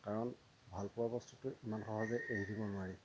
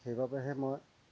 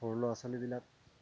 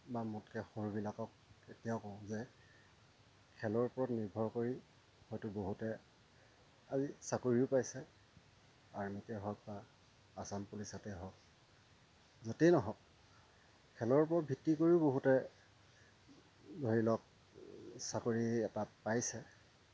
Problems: constant background noise, low volume